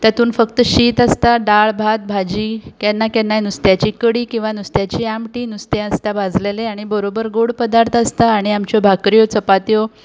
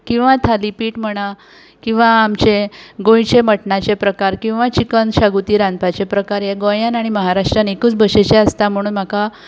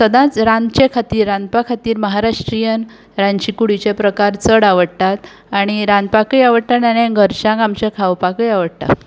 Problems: background sounds at intervals